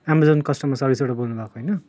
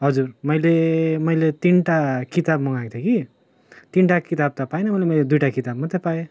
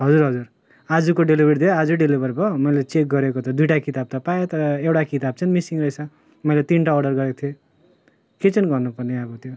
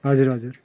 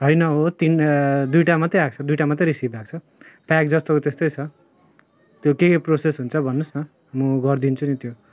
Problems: constant background noise